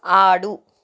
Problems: none marked